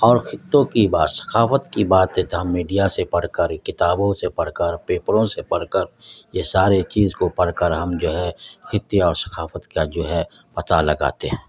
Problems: constant background noise